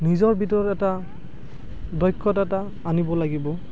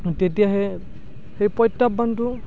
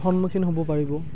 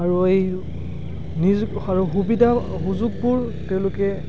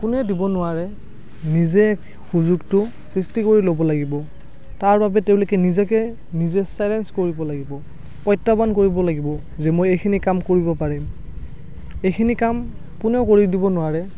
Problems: background sounds at intervals